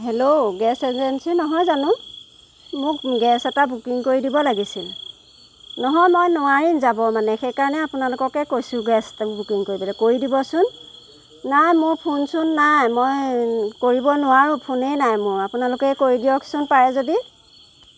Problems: constant background noise